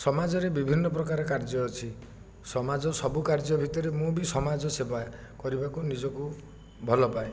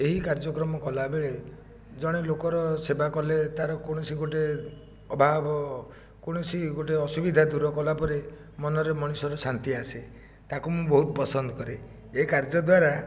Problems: background sounds at intervals, low volume